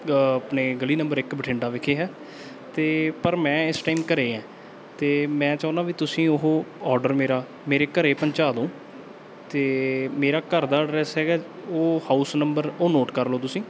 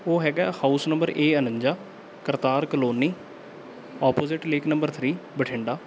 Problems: background sounds at intervals